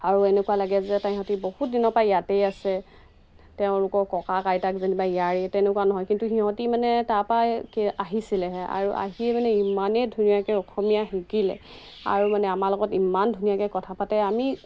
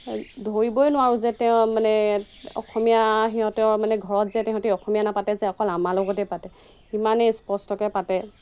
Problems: constant background noise